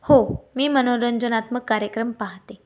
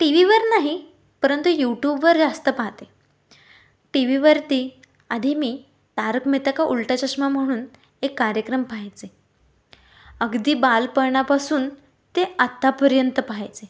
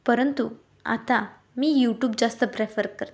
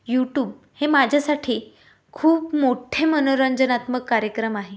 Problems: none marked